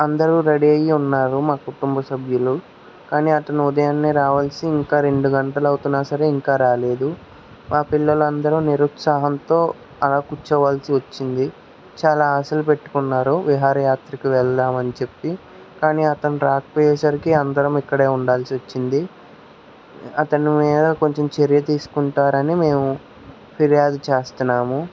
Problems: constant background noise